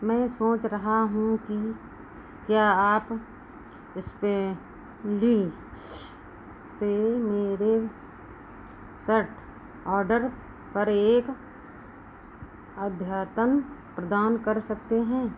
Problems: constant background noise